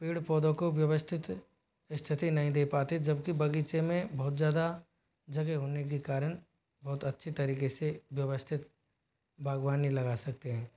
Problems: none marked